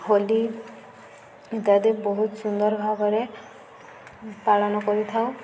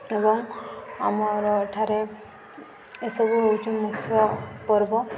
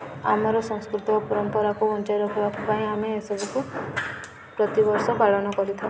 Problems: constant background noise